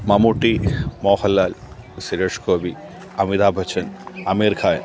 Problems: background sounds at intervals